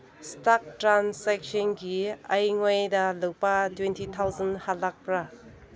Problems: background conversations at intervals